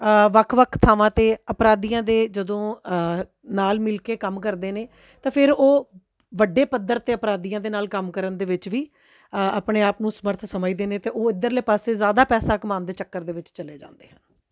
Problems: none marked